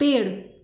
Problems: none marked